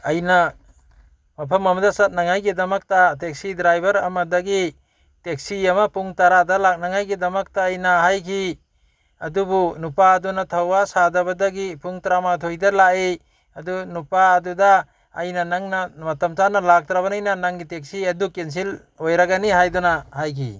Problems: none marked